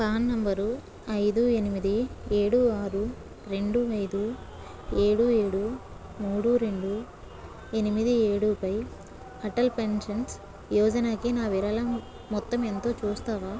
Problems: none marked